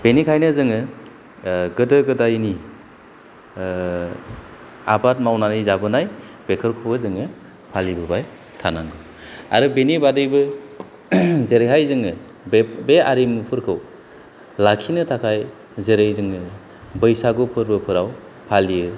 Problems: none marked